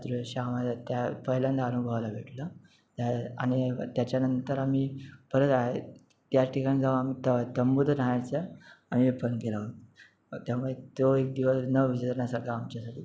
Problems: none marked